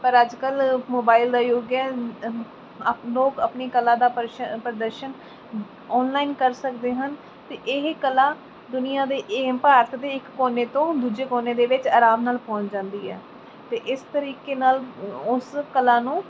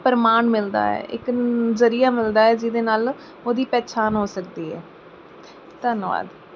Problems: none marked